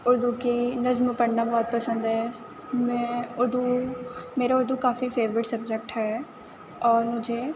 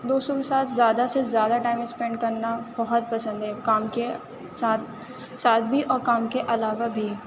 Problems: constant background noise